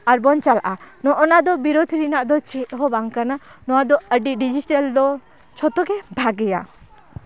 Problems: constant background noise, continuous background conversations